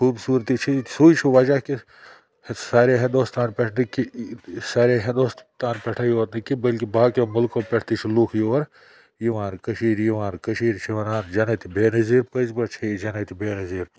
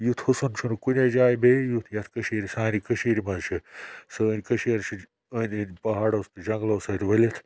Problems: none marked